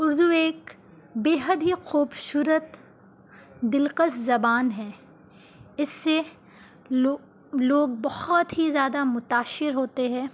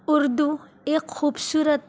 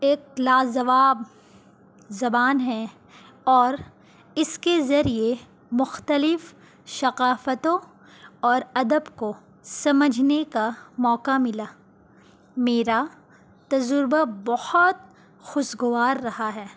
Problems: constant background noise